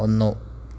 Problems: constant background noise